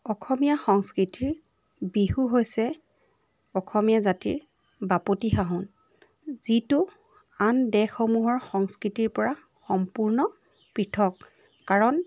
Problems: background sounds at intervals